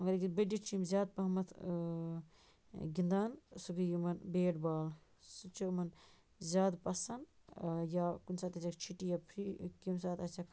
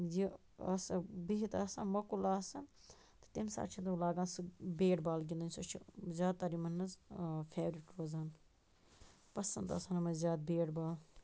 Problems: constant background noise